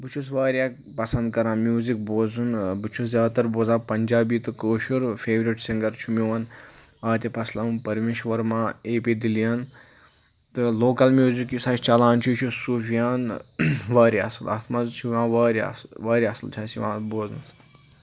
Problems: background sounds at intervals